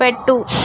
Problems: constant background noise